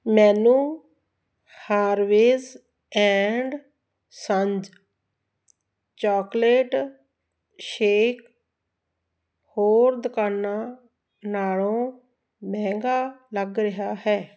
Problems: none marked